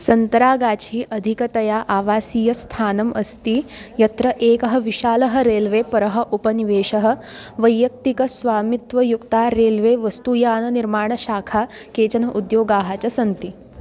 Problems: none marked